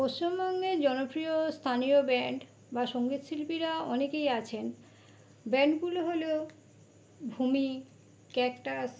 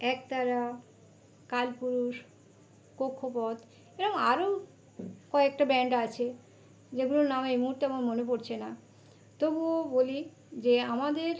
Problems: background sounds at intervals